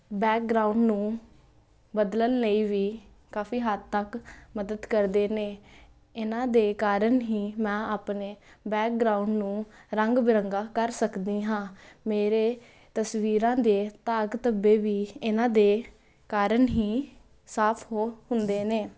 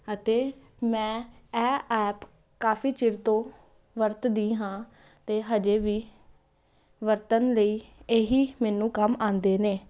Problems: constant background noise